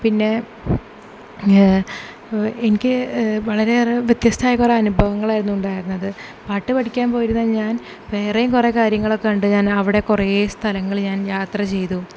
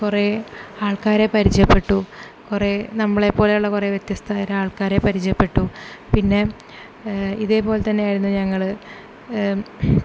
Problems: none marked